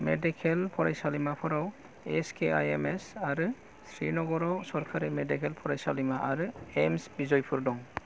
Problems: low volume